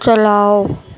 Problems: constant background noise